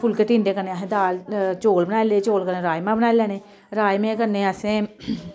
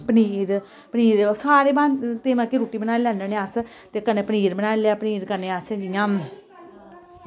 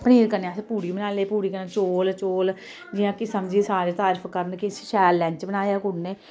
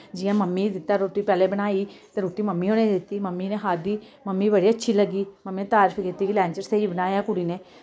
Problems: constant background noise